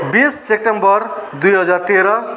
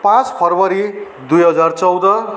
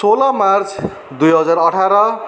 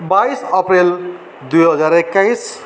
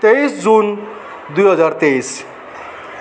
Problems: constant background noise